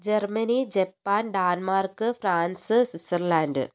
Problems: none marked